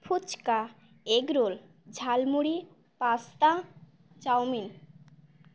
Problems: none marked